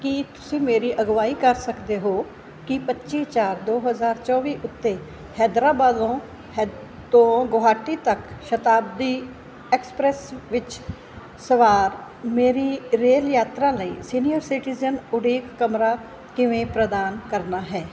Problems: constant background noise